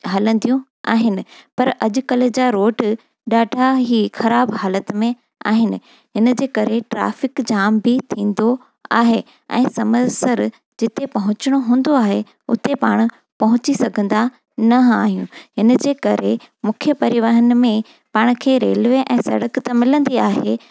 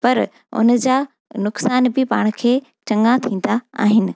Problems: none marked